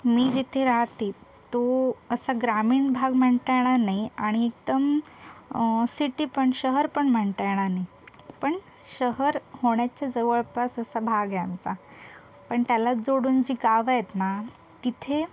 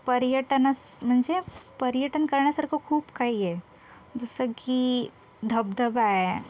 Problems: constant background noise, continuous background conversations